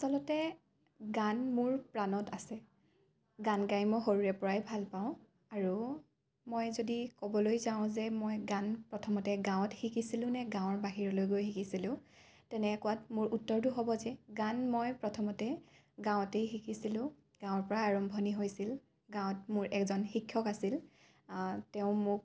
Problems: none marked